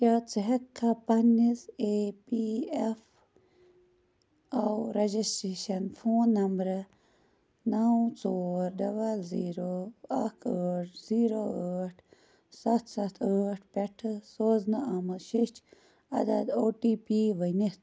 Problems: low volume